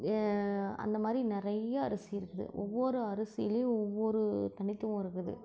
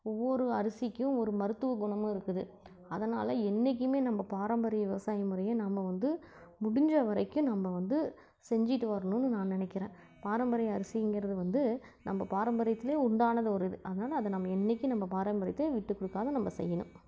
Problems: low volume